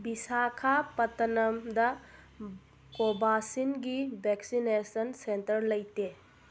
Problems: constant background noise